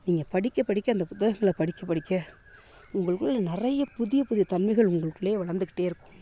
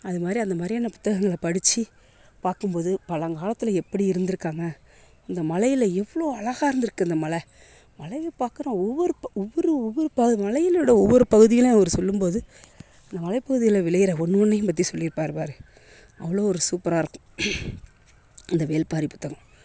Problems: constant background noise